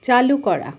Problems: none marked